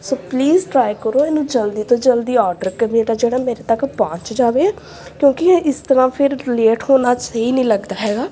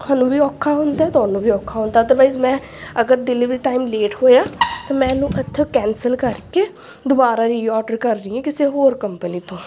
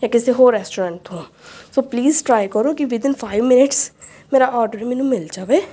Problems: background sounds at intervals, background conversations at intervals